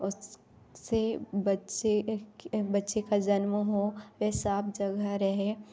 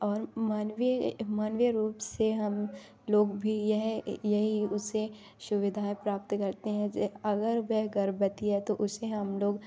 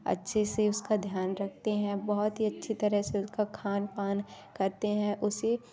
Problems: none marked